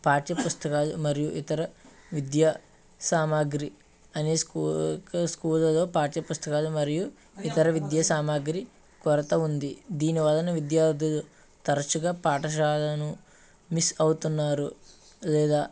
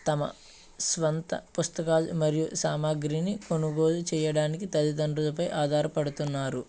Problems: background sounds at intervals, background conversations at intervals